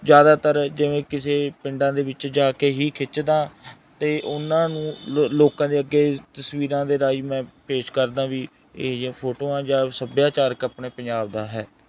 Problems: background sounds at intervals